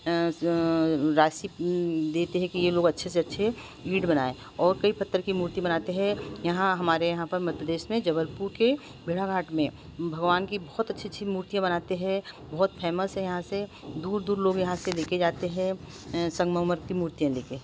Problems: constant background noise